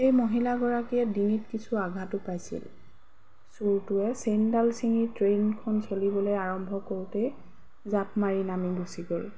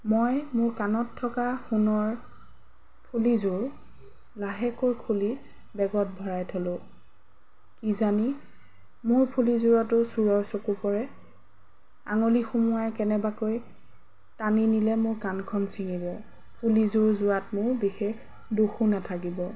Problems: background sounds at intervals